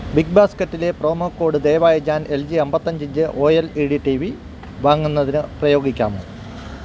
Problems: constant background noise